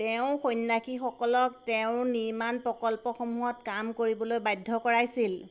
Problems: constant background noise